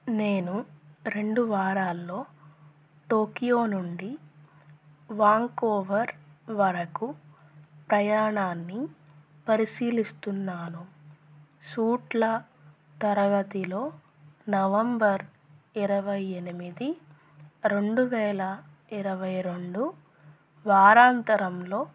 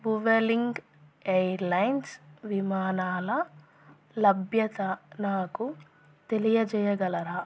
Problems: none marked